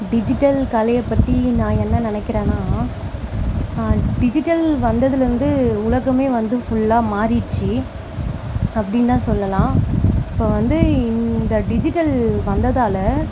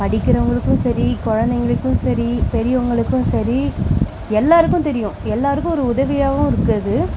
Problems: background sounds at intervals